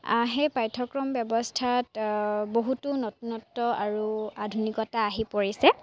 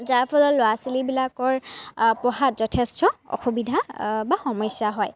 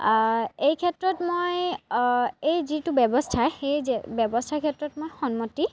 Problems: background sounds at intervals, background conversations at intervals